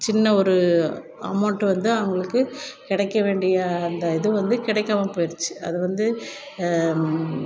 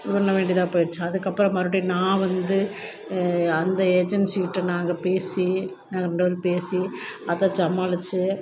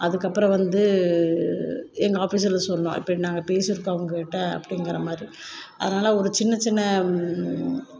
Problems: none marked